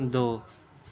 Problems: background sounds at intervals